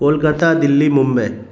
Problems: constant background noise